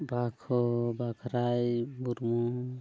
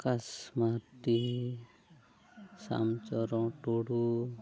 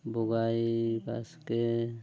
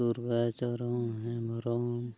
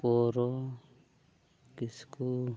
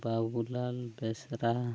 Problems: low volume